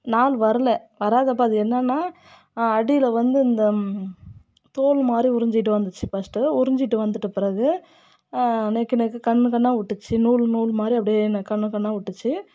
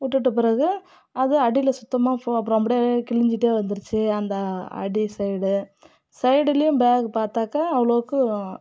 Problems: none marked